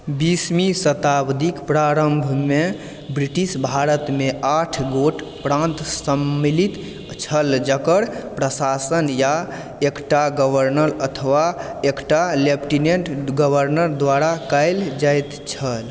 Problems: background sounds at intervals